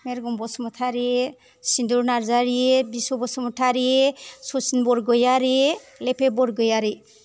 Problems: none marked